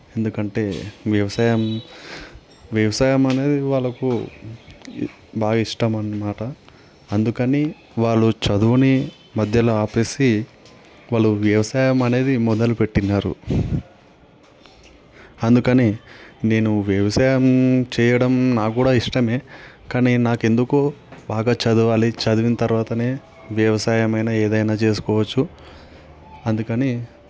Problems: constant background noise